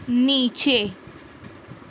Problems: constant background noise